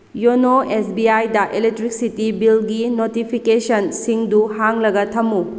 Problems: constant background noise